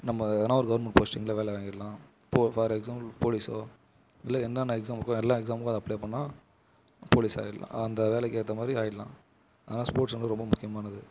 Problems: constant background noise